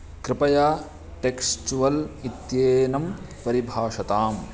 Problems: constant background noise, continuous background conversations